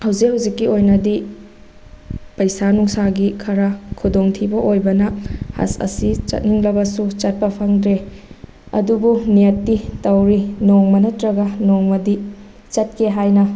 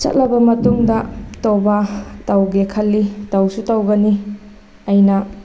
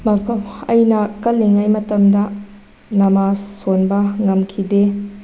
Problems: none marked